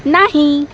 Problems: none marked